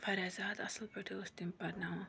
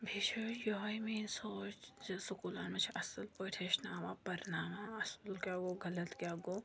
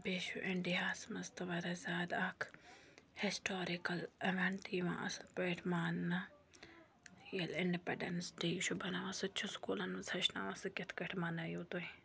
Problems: none marked